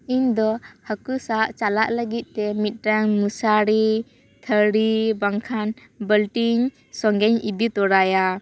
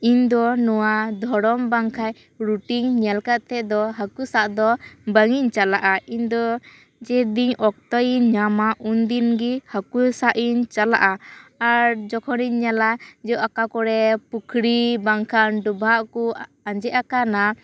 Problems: background sounds at intervals, background conversations at intervals